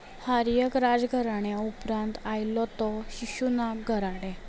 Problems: background sounds at intervals